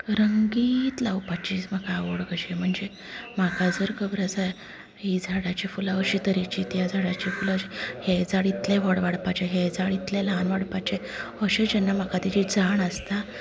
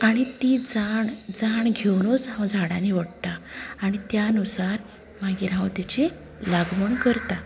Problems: constant background noise, background conversations at intervals, low volume